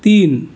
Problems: none marked